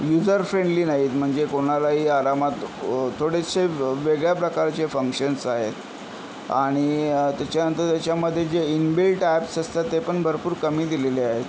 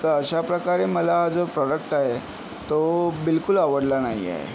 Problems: none marked